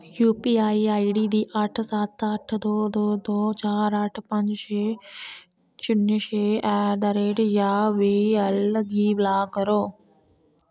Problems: none marked